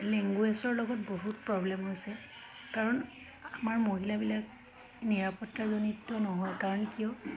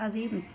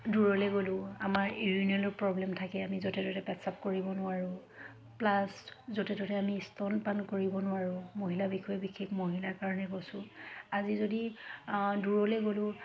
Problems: constant background noise, background conversations at intervals